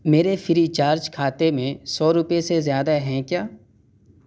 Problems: constant background noise